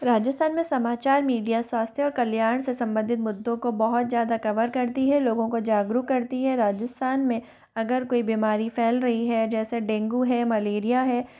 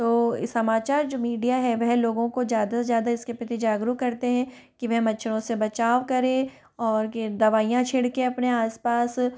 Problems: background sounds at intervals